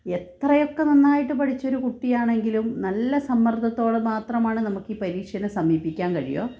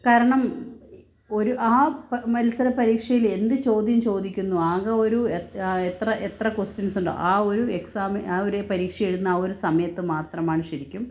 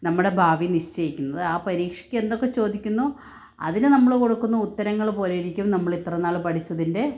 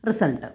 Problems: none marked